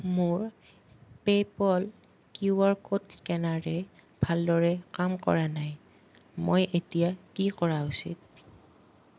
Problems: none marked